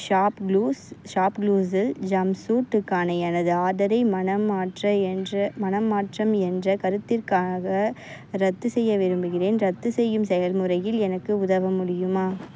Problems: none marked